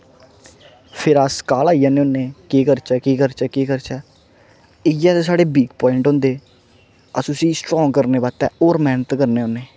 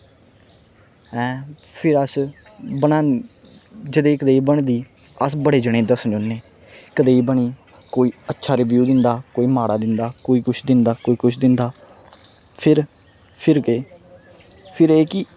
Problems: constant background noise